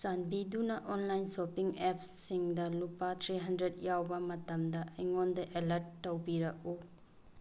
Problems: background sounds at intervals